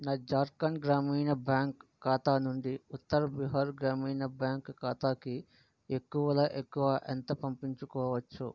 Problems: none marked